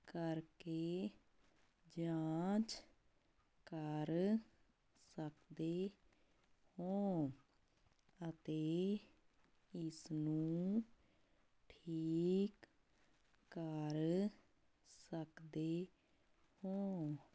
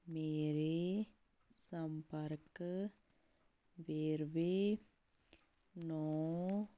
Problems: none marked